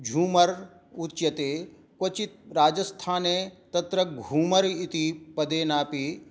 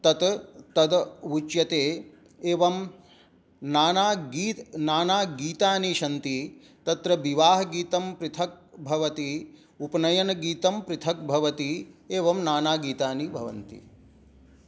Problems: none marked